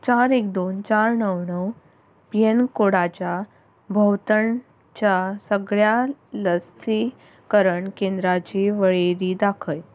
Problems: constant background noise